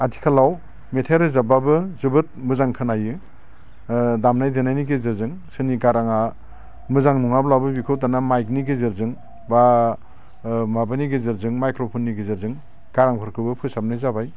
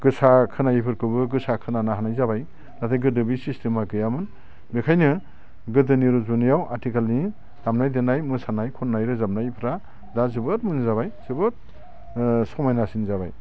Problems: constant background noise